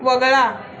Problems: constant background noise